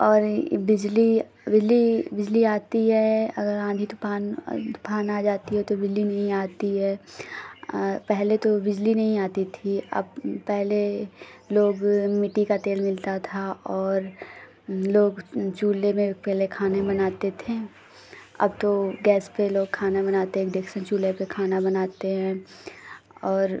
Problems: constant background noise